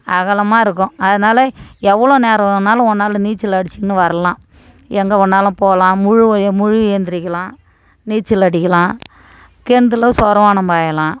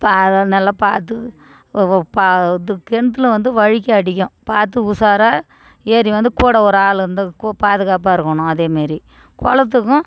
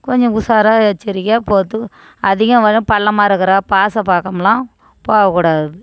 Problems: background conversations at intervals